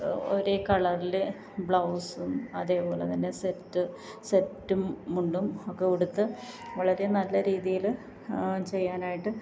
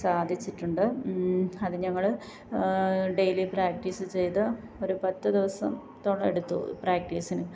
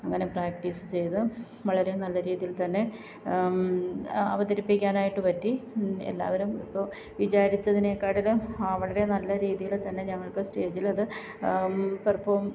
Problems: background sounds at intervals